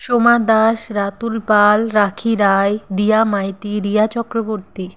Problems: none marked